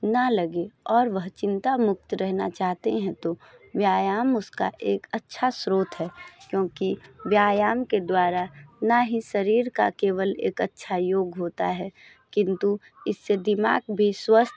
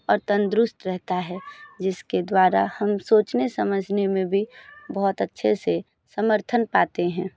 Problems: background sounds at intervals, background conversations at intervals